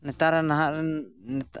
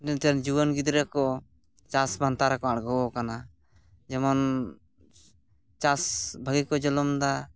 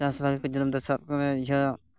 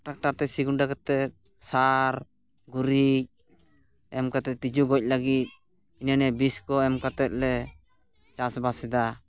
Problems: background sounds at intervals